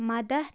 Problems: none marked